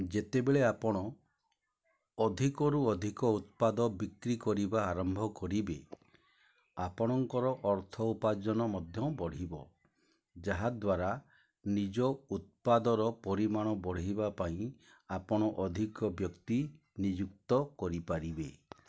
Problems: low volume